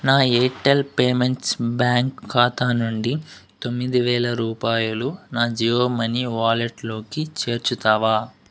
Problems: background sounds at intervals